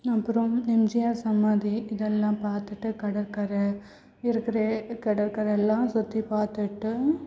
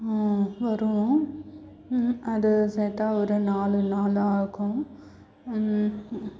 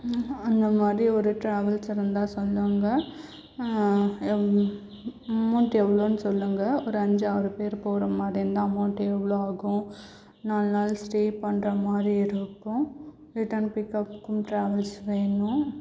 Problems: background sounds at intervals, low volume